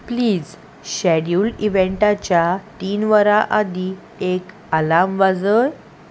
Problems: none marked